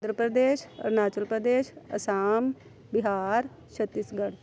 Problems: none marked